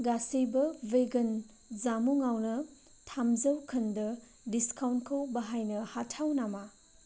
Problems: none marked